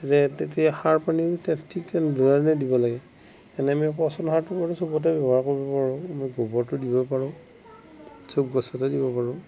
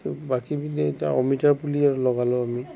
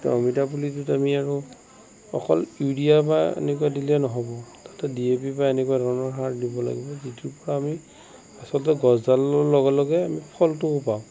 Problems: constant background noise, low volume